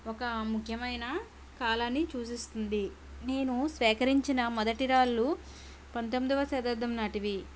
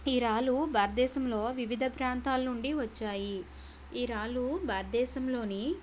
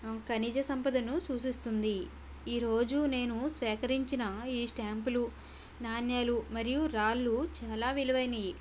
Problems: none marked